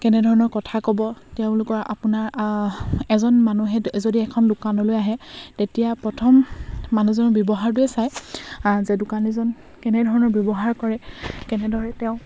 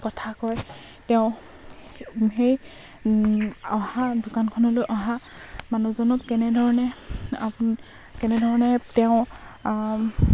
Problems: constant background noise